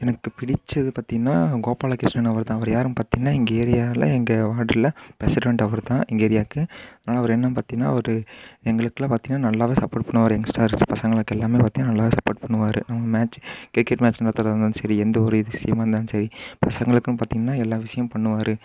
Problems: constant background noise